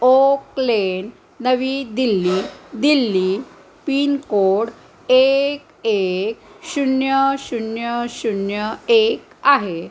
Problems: constant background noise